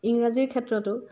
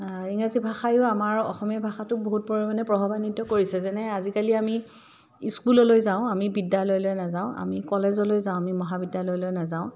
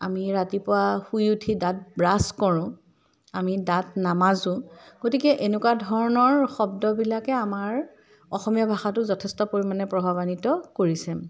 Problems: none marked